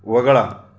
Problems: none marked